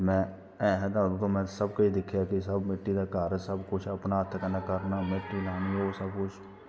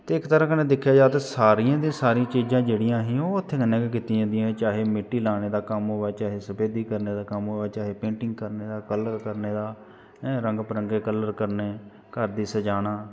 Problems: constant background noise